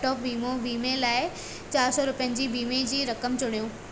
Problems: constant background noise